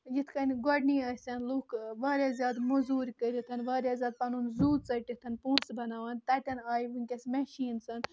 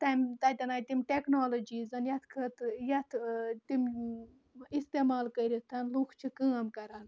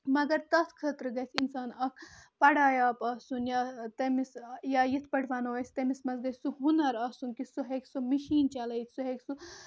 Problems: constant background noise